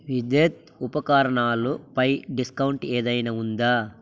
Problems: constant background noise